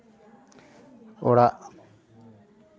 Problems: none marked